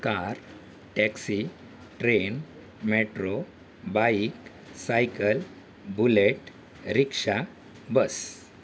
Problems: constant background noise